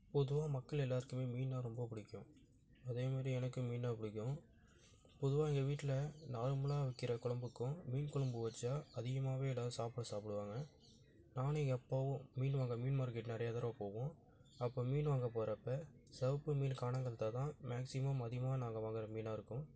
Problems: background sounds at intervals